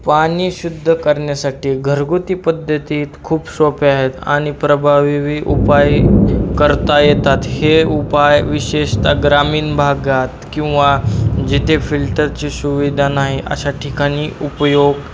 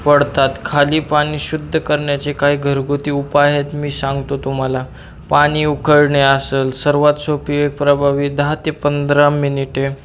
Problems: constant background noise